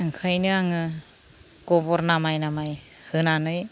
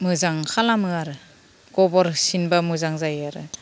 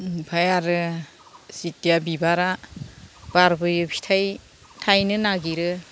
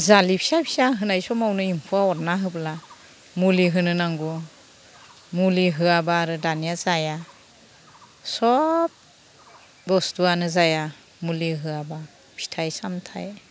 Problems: none marked